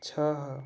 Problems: background sounds at intervals